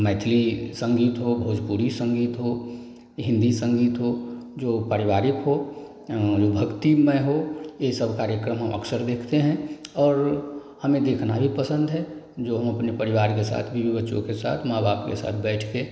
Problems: none marked